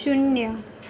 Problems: constant background noise